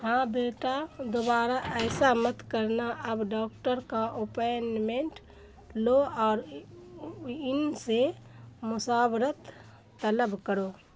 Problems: none marked